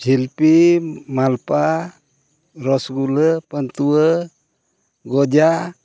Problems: none marked